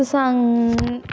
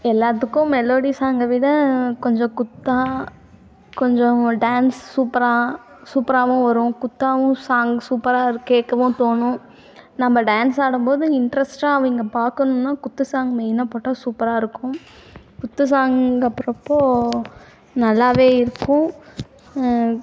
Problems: constant background noise